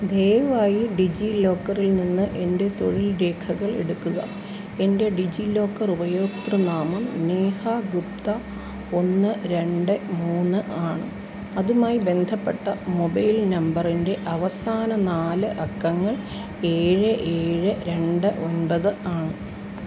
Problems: constant background noise